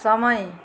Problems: none marked